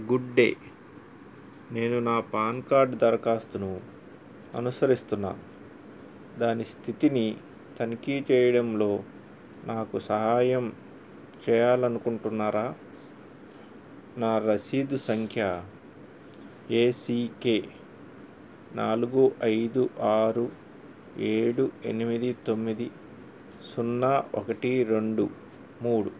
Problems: none marked